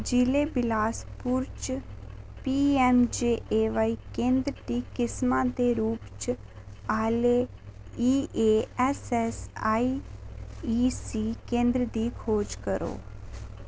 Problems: none marked